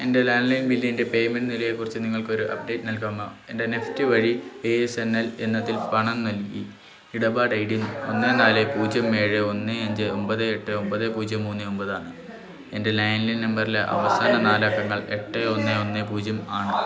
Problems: continuous background conversations